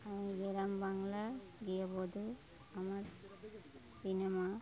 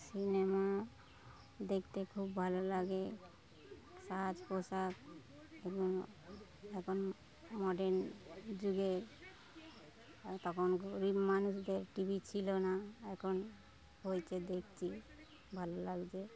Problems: background sounds at intervals, continuous background conversations